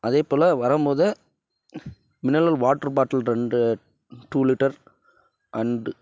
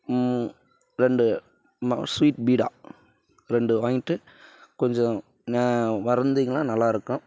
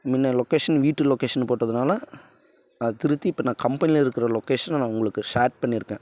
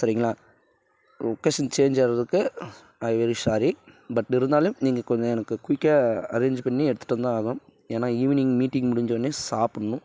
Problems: background sounds at intervals